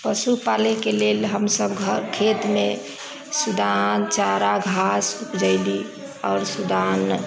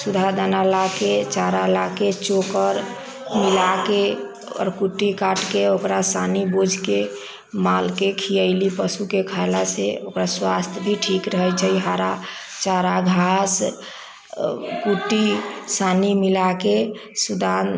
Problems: background sounds at intervals